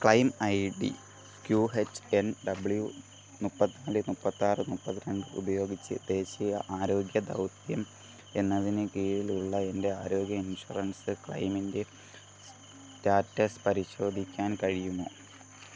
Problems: background sounds at intervals, low volume